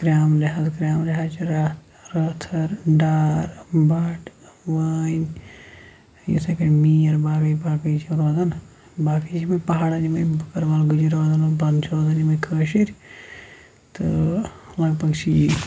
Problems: constant background noise